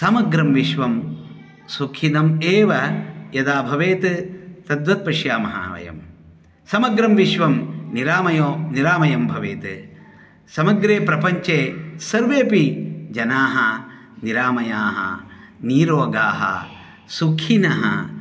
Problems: continuous background conversations